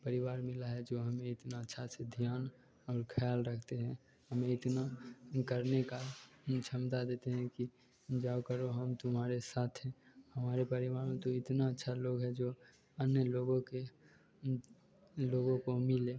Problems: none marked